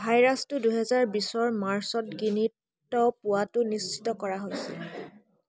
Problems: constant background noise, background conversations at intervals